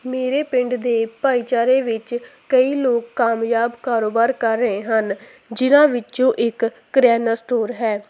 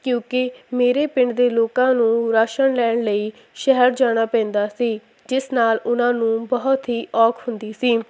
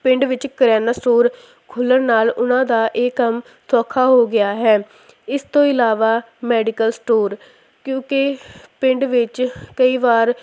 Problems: constant background noise